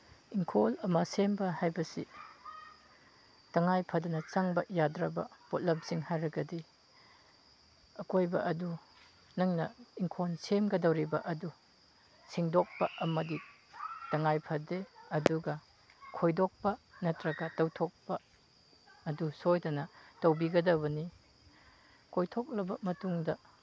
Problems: background sounds at intervals, background conversations at intervals